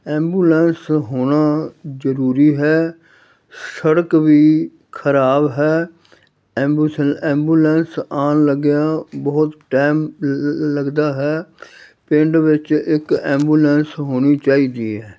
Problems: none marked